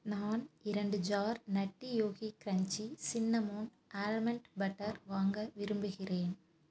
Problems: none marked